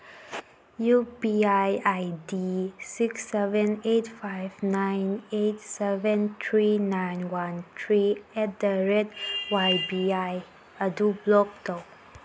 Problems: constant background noise